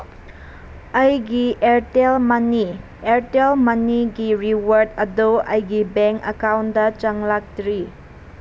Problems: constant background noise